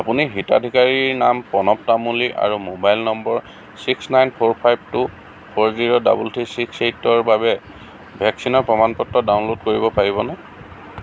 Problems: constant background noise